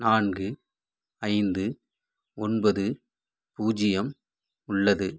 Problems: none marked